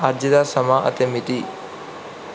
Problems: background sounds at intervals